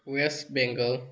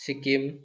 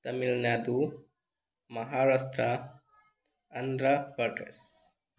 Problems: background sounds at intervals